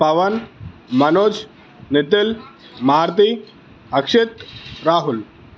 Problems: constant background noise